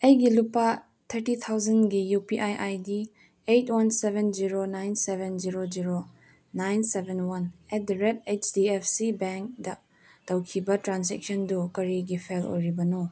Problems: none marked